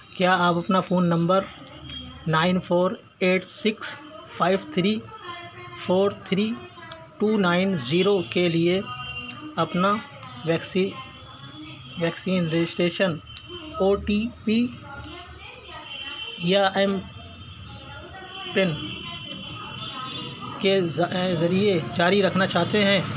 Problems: constant background noise, continuous background conversations, low volume